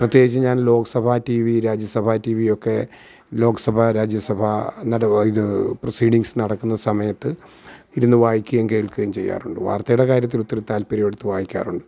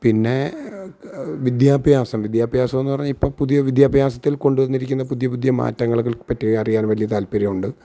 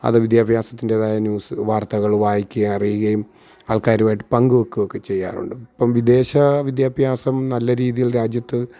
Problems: background sounds at intervals